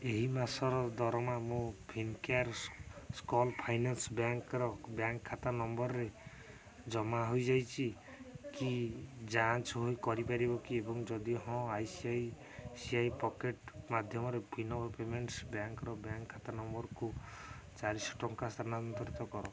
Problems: none marked